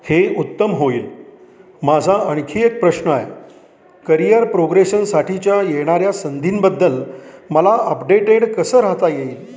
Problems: continuous background conversations